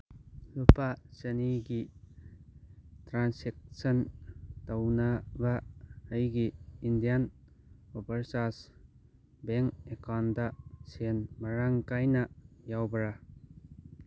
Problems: none marked